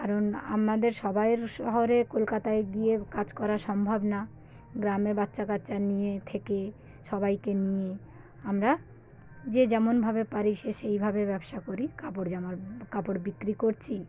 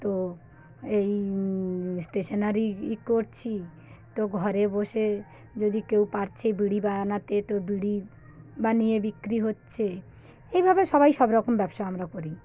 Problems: background sounds at intervals, low volume